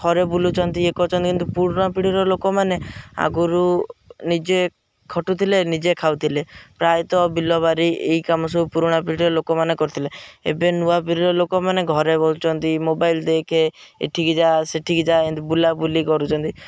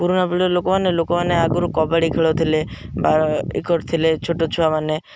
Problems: background sounds at intervals